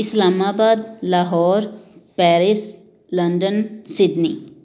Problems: none marked